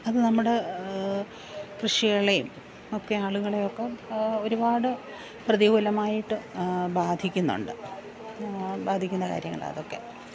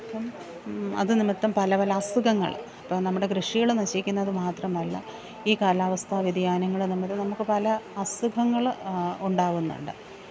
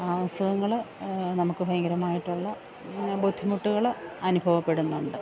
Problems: background sounds at intervals, low volume